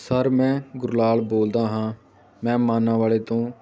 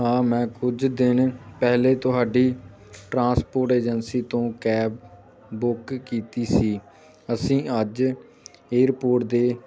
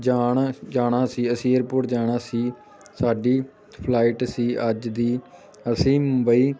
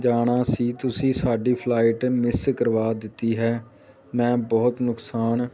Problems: background sounds at intervals